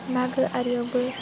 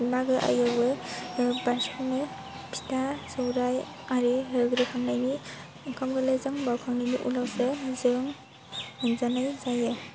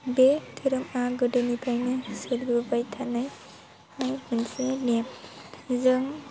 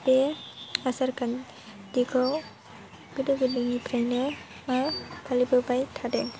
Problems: low volume